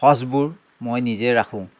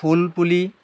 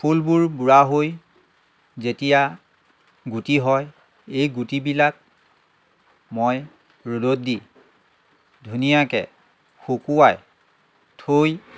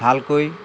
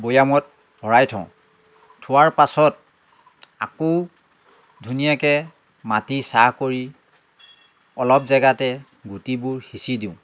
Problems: none marked